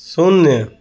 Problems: none marked